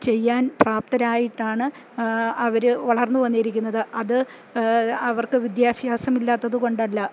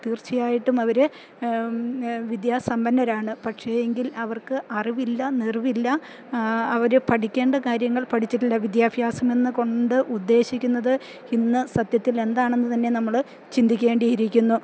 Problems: none marked